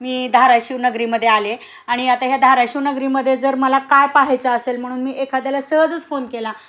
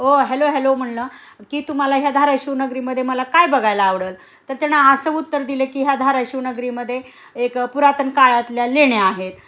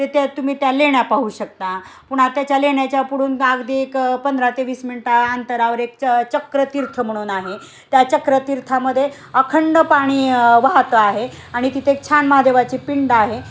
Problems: constant background noise, background conversations at intervals